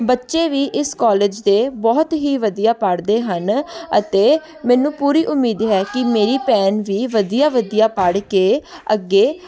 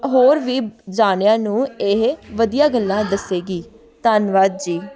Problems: continuous background conversations